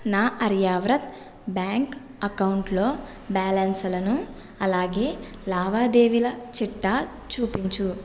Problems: none marked